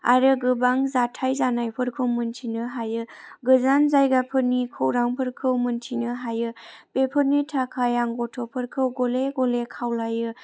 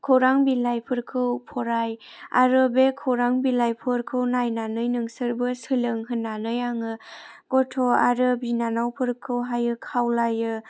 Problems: none marked